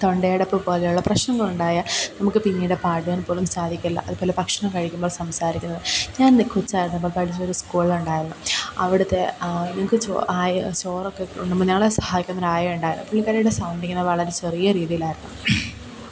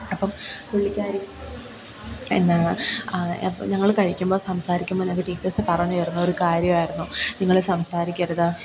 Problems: constant background noise